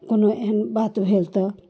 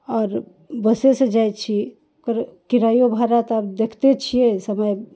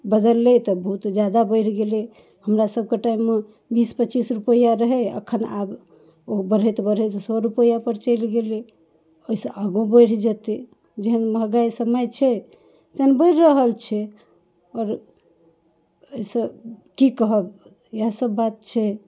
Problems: none marked